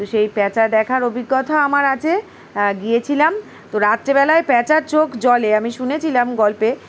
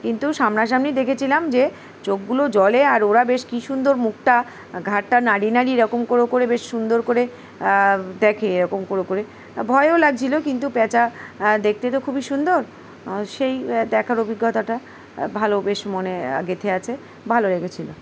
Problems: background sounds at intervals